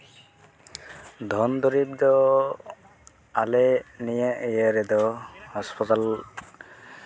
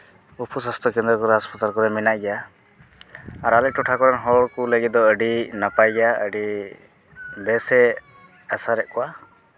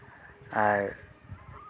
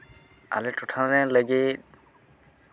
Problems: constant background noise